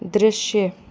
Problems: none marked